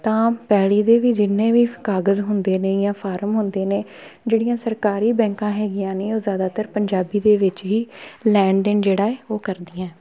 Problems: continuous background conversations